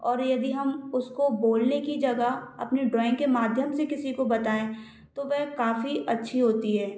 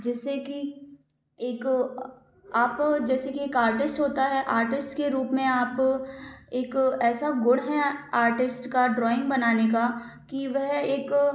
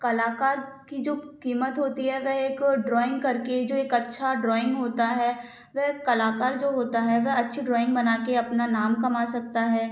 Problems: background sounds at intervals